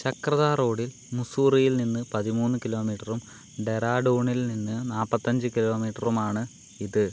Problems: constant background noise